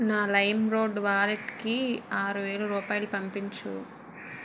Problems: background sounds at intervals